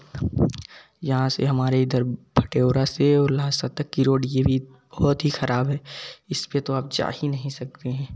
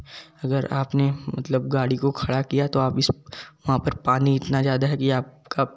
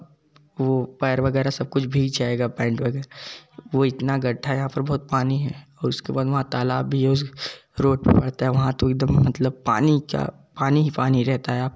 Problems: background sounds at intervals, background conversations at intervals